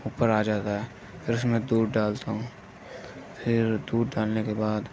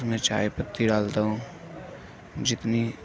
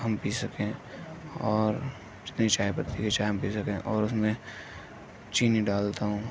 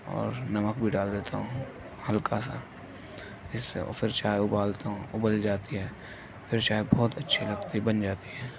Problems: constant background noise